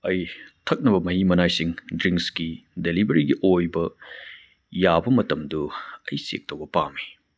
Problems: none marked